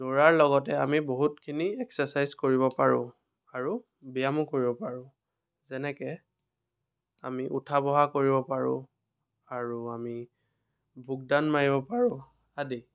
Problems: none marked